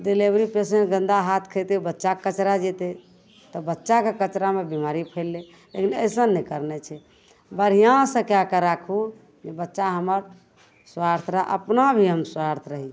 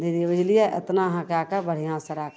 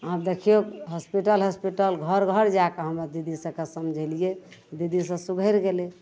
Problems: none marked